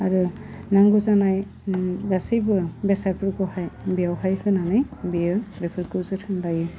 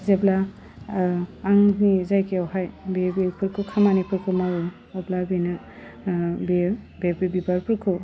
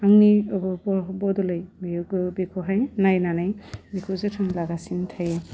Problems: low volume